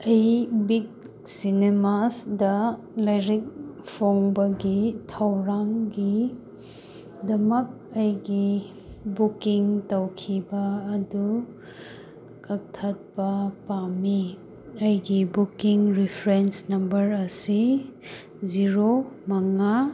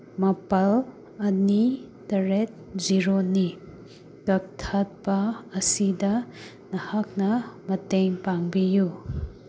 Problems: constant background noise